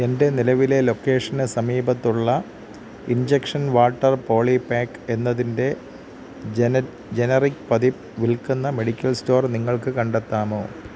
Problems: constant background noise